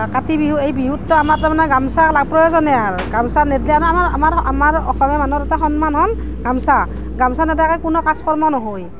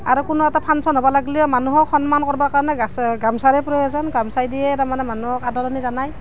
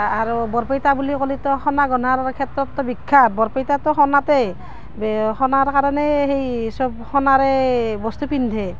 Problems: none marked